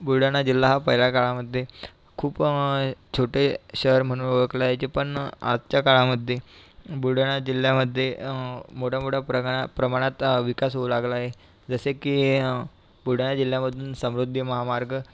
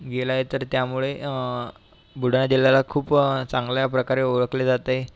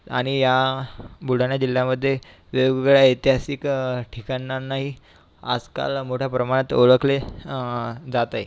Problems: constant background noise